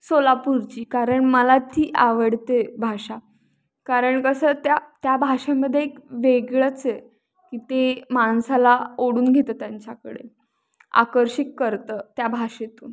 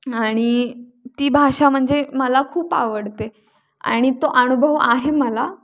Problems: none marked